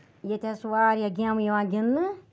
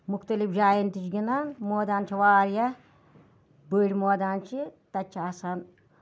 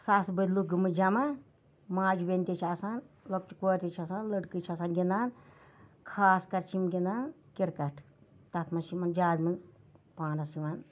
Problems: none marked